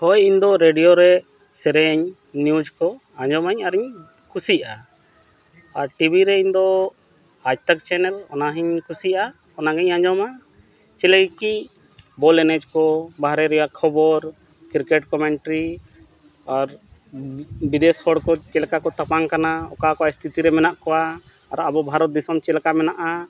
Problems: constant background noise